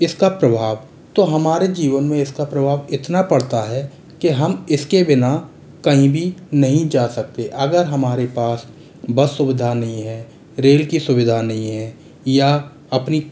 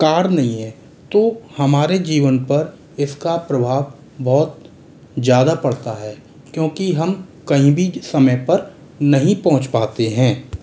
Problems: constant background noise